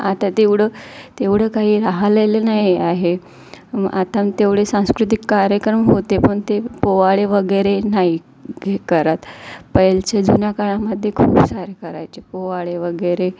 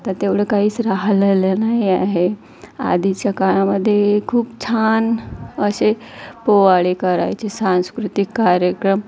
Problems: constant background noise, background conversations at intervals